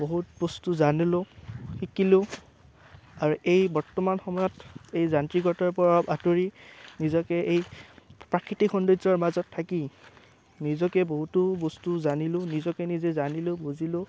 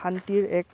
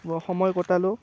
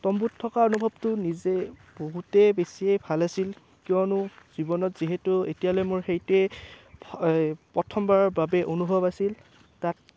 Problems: none marked